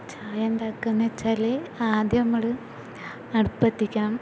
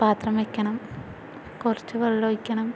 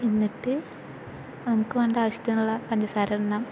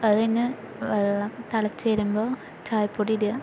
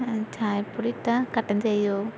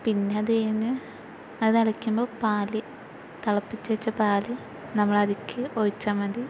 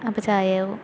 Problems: constant background noise